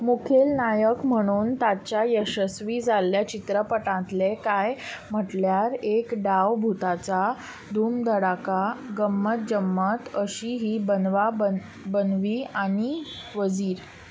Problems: constant background noise